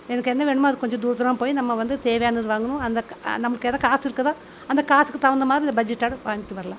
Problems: constant background noise